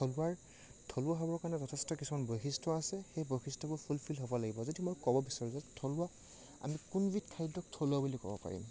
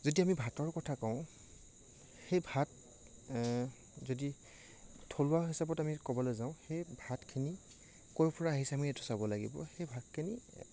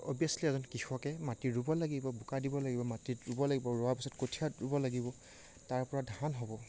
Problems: low volume